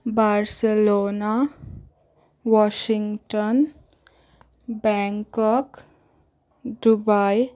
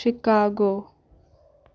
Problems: none marked